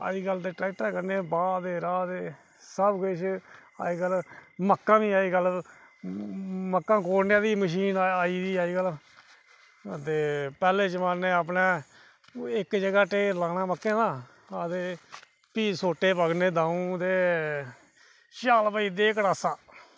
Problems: none marked